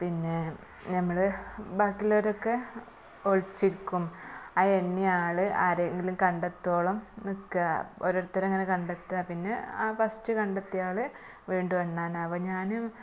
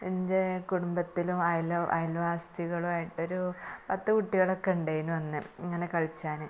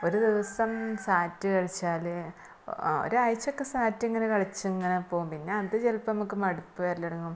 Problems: background sounds at intervals, low volume